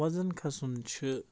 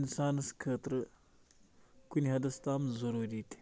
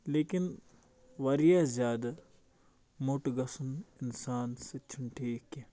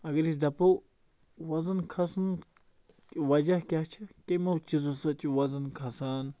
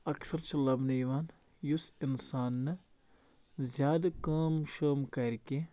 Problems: none marked